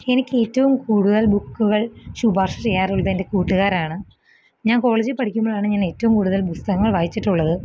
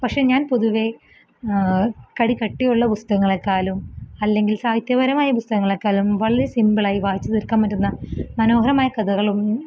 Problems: none marked